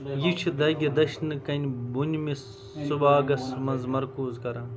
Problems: constant background noise, background conversations at intervals